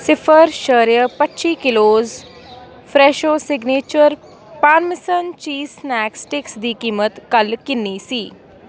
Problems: constant background noise